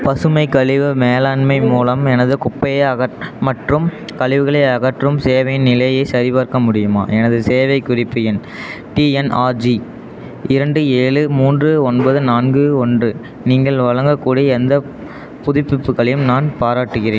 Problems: background conversations at intervals